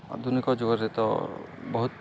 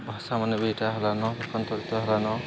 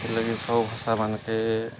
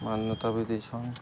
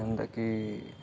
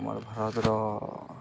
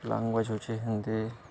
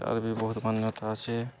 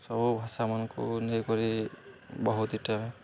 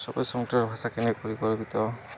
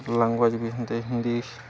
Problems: none marked